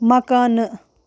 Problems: constant background noise